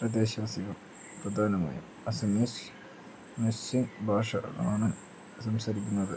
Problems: low volume